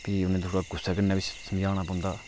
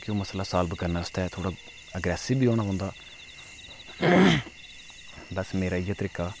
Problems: none marked